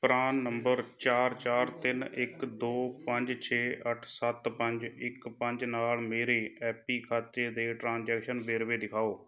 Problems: background conversations at intervals